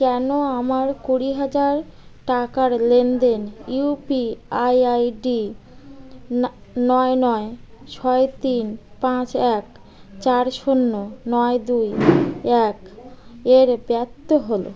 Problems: background sounds at intervals